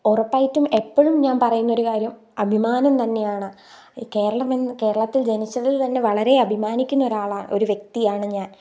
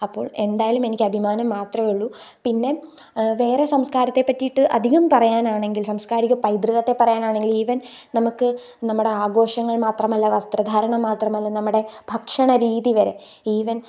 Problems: none marked